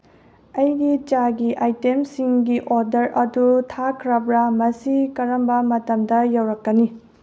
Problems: low volume